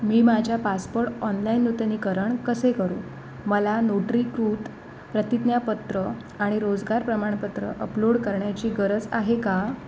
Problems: none marked